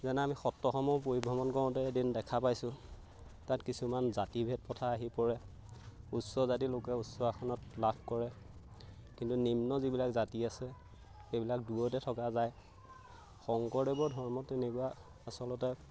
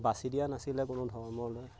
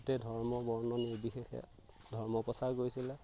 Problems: background sounds at intervals